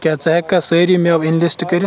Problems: constant background noise